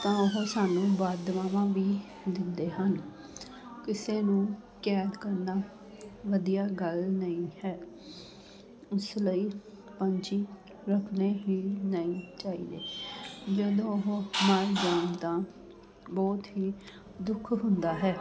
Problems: constant background noise, continuous background conversations